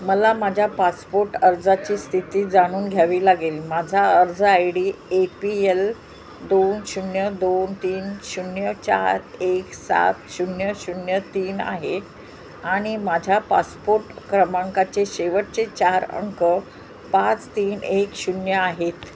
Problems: constant background noise, continuous background conversations